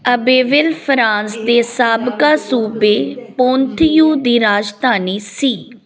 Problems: continuous background conversations